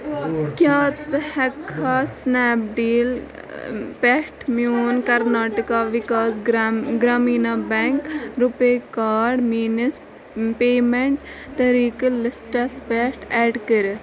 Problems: constant background noise, continuous background conversations